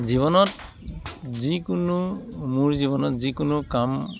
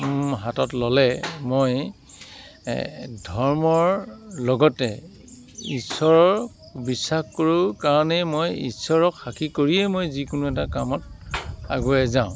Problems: constant background noise